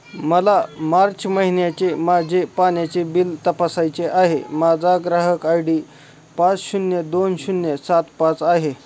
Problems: constant background noise